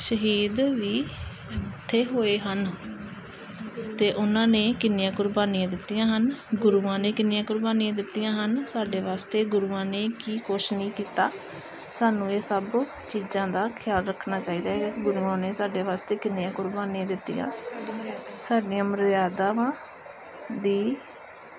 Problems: none marked